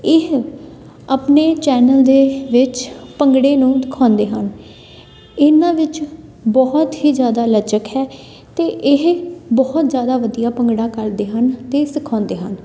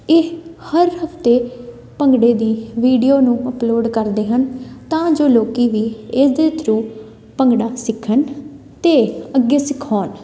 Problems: background sounds at intervals, continuous background conversations